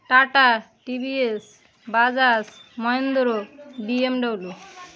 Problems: none marked